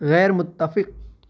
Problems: none marked